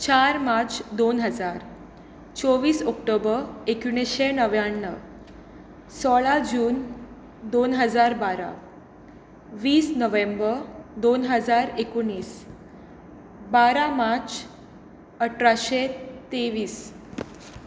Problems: constant background noise